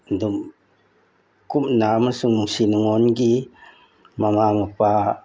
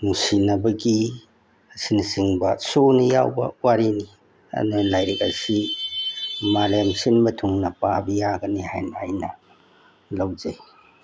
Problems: background sounds at intervals